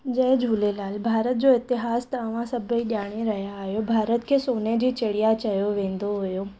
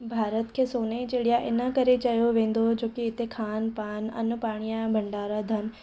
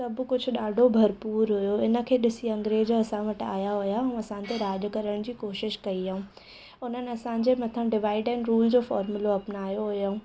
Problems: none marked